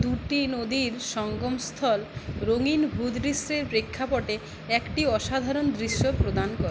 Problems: constant background noise